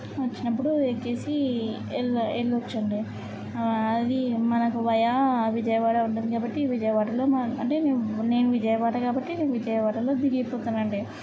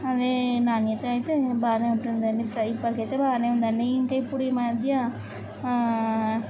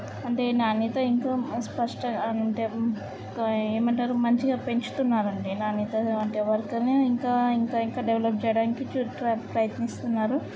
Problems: none marked